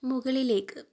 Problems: low volume